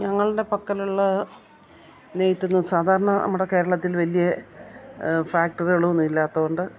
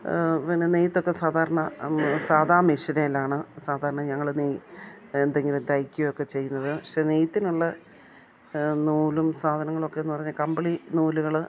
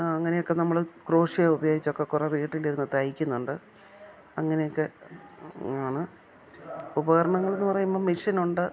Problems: background sounds at intervals, background conversations at intervals